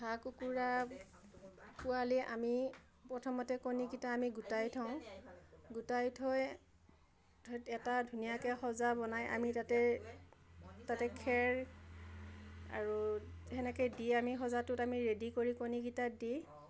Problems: none marked